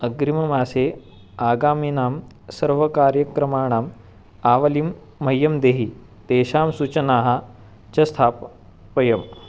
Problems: background sounds at intervals